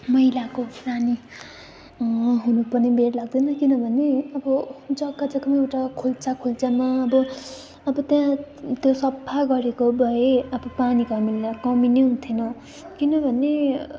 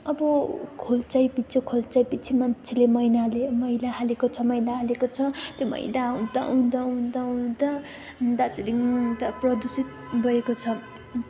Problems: constant background noise